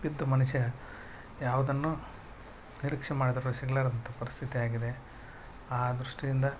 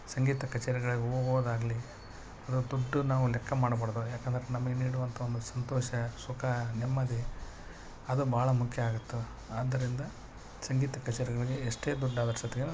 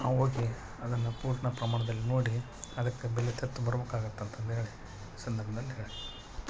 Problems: constant background noise